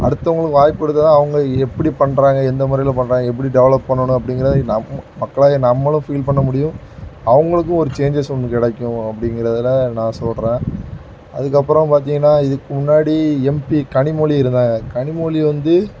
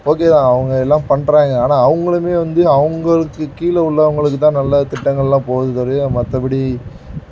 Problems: background sounds at intervals